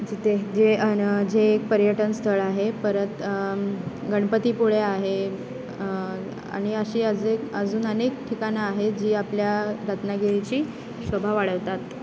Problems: constant background noise, continuous background conversations